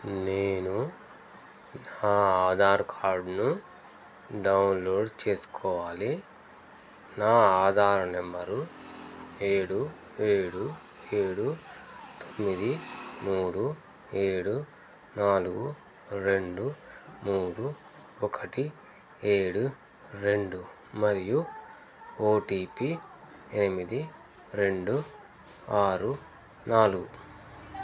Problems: constant background noise